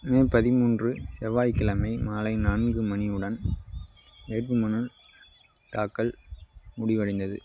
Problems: background sounds at intervals